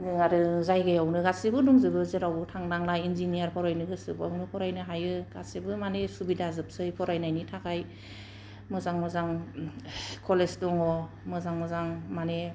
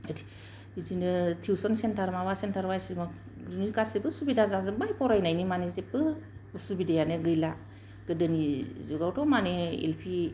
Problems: low volume